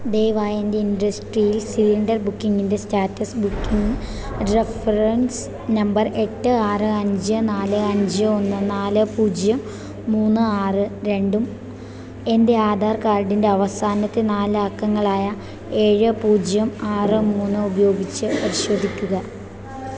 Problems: constant background noise